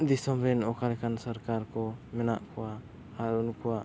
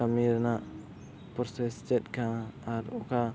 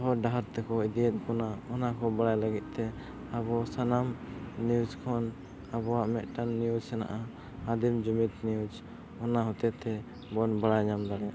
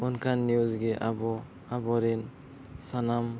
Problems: none marked